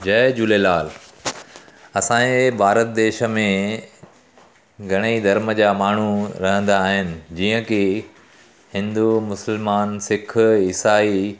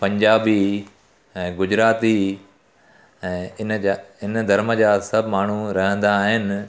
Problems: constant background noise